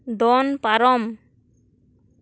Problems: none marked